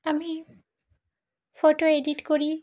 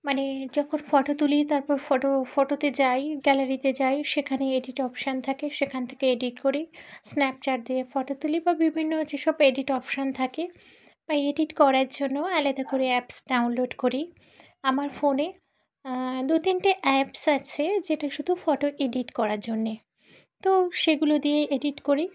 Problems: constant background noise